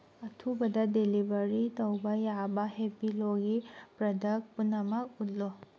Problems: background sounds at intervals